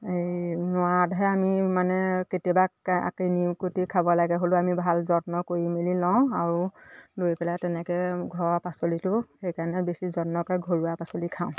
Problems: constant background noise, background conversations at intervals